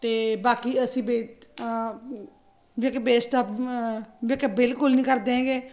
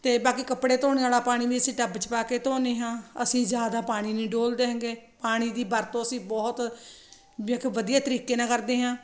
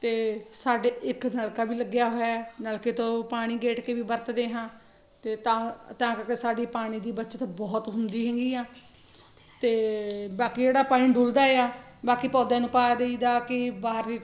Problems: none marked